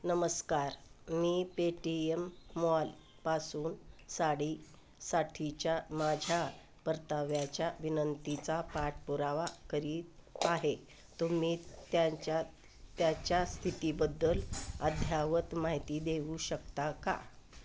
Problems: none marked